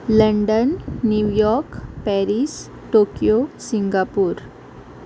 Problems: constant background noise